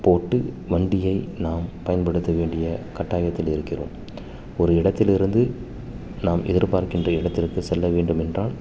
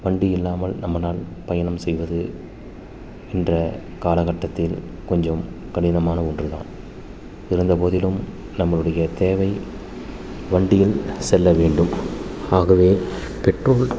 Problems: constant background noise